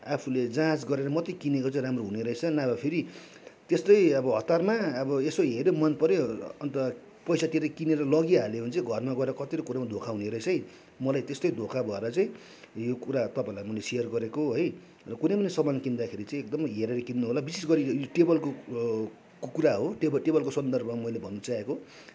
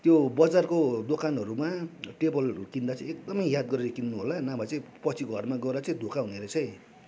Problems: none marked